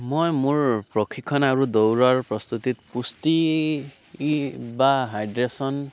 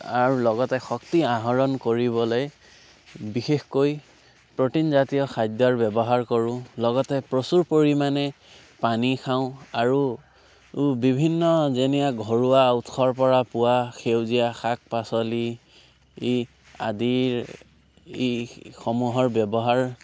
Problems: background sounds at intervals